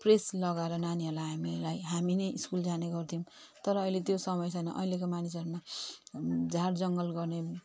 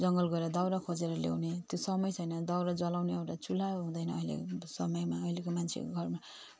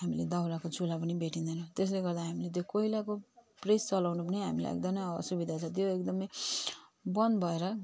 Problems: none marked